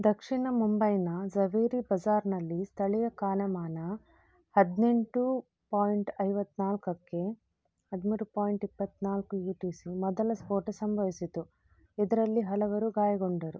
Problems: none marked